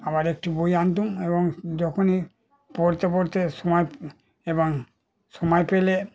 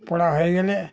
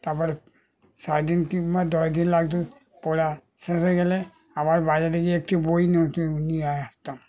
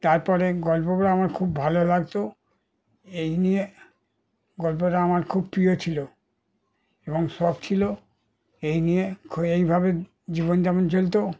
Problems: background sounds at intervals